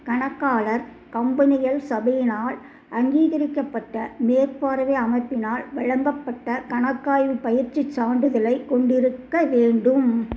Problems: none marked